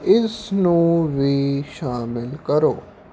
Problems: none marked